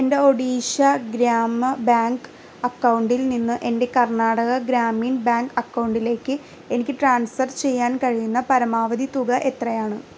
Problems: constant background noise